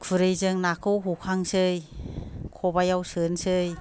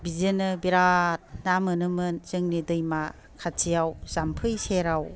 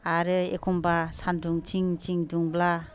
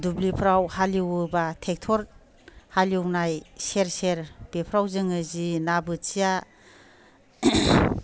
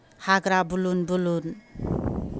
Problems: low volume